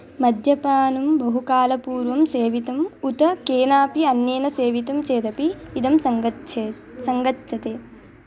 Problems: constant background noise